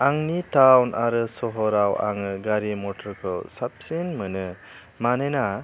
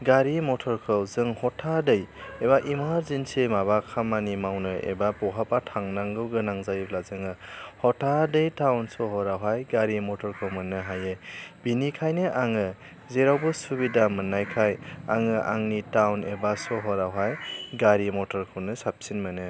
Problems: none marked